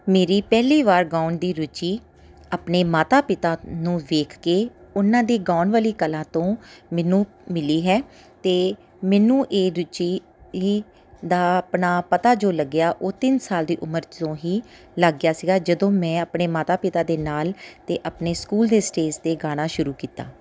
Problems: background sounds at intervals